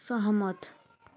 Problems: background sounds at intervals